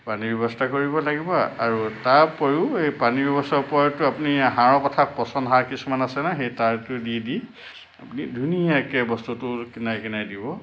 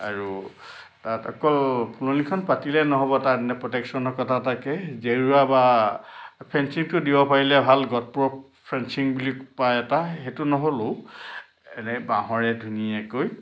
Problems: none marked